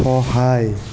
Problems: constant background noise